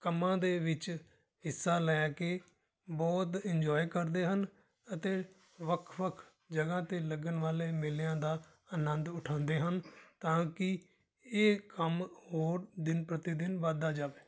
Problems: background sounds at intervals